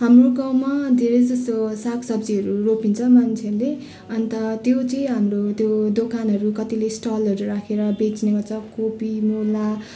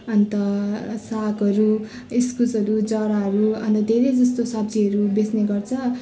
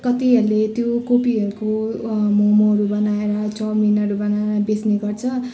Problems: none marked